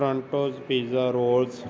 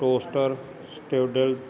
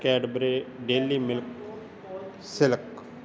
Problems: constant background noise